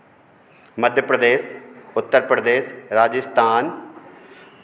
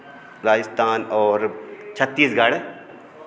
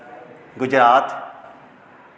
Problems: constant background noise, continuous background conversations